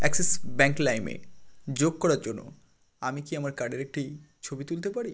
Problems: none marked